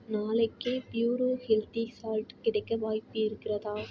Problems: none marked